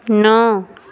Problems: none marked